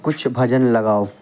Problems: constant background noise